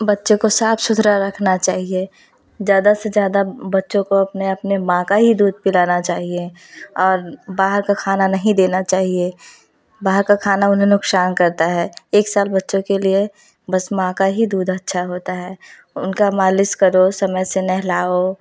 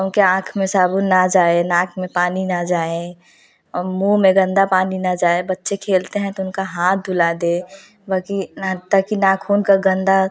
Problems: none marked